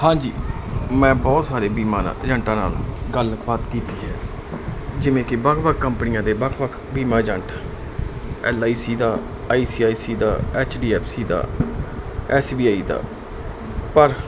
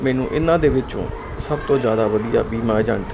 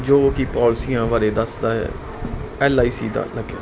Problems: constant background noise